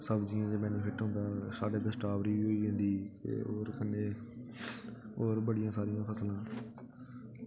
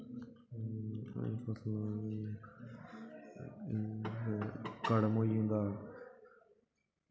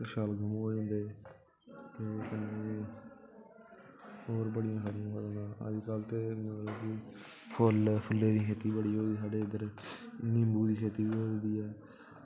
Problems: constant background noise, background conversations at intervals